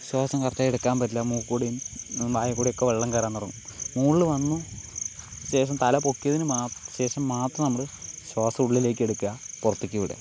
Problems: none marked